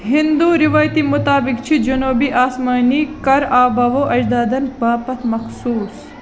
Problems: constant background noise